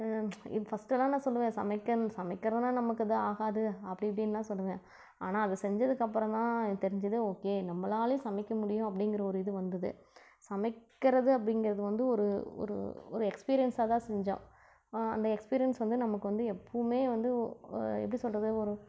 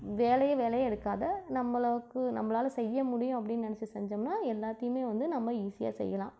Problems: none marked